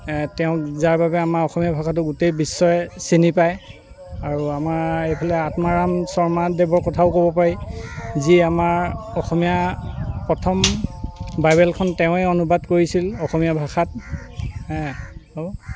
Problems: constant background noise